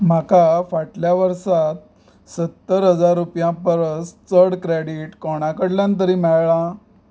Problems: background sounds at intervals